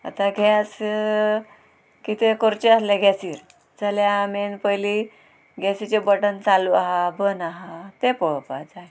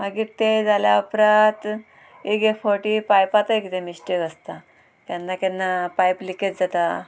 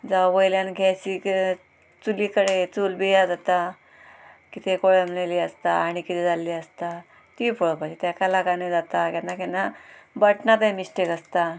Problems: constant background noise, background conversations at intervals